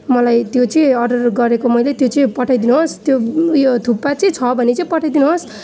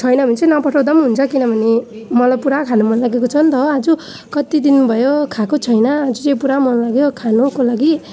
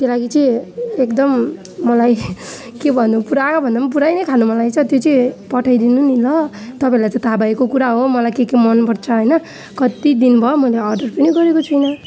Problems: background sounds at intervals